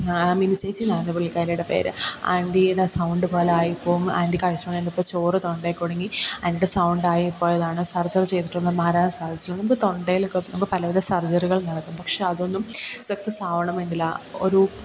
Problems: constant background noise